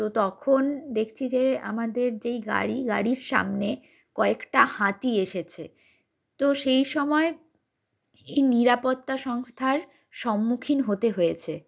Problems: none marked